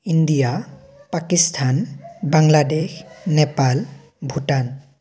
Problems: none marked